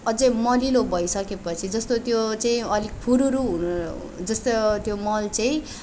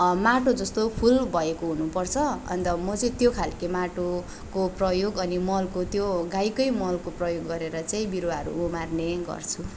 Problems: background sounds at intervals